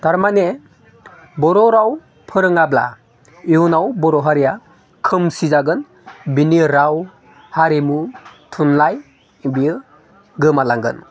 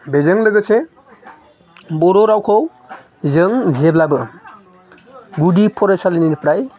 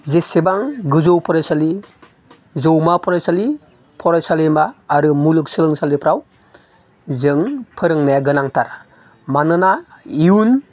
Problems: none marked